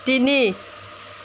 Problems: none marked